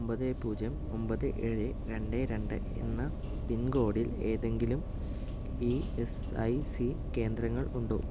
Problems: background sounds at intervals, low volume